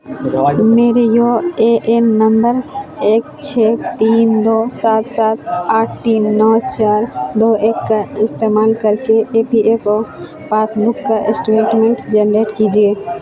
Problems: constant background noise